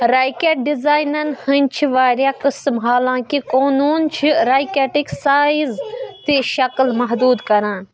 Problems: background sounds at intervals, background conversations at intervals